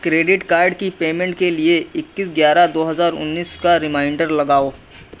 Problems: none marked